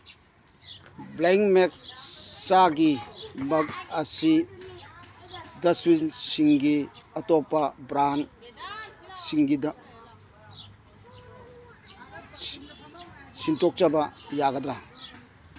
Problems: background sounds at intervals, background conversations at intervals